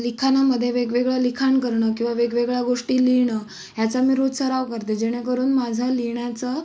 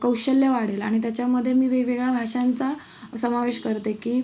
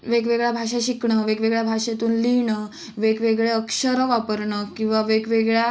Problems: background sounds at intervals